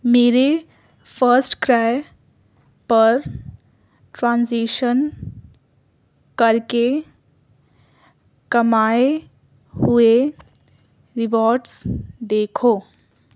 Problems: none marked